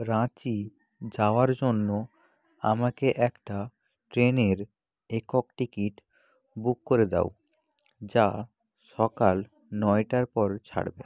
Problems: background sounds at intervals, background conversations at intervals